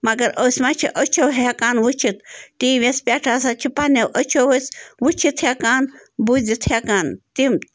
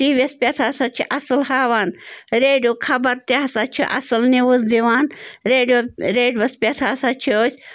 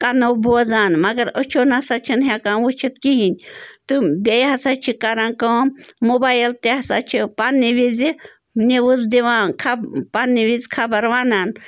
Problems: background sounds at intervals